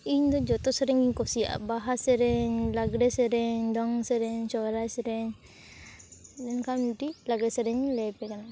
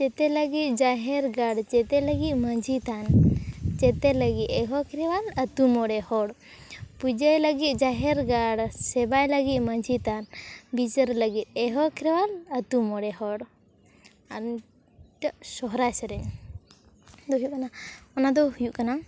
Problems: background conversations at intervals